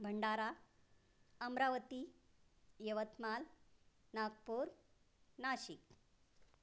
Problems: none marked